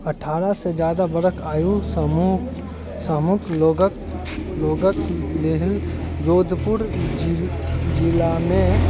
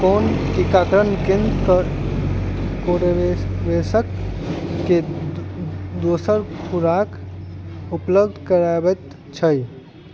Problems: background sounds at intervals